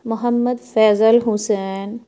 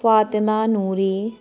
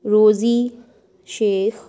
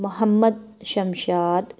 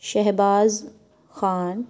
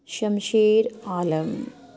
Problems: background sounds at intervals